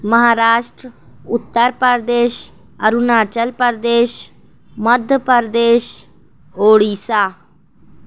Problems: none marked